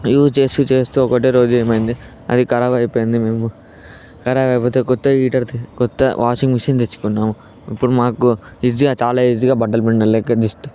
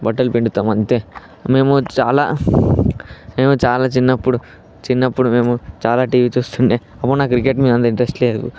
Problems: background sounds at intervals